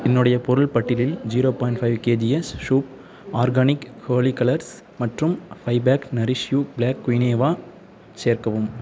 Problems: background conversations at intervals